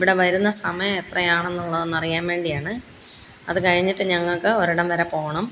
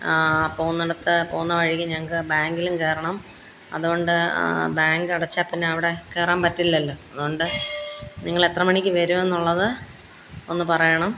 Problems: constant background noise